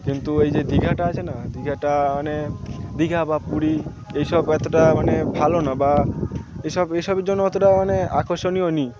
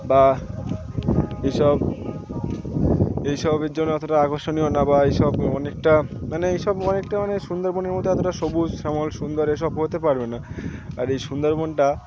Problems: constant background noise, continuous background conversations